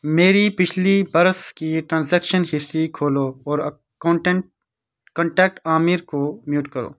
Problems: none marked